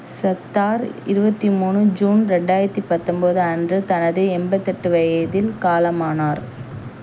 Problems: none marked